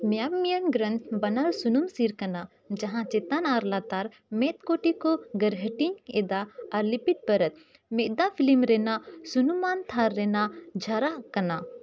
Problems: background sounds at intervals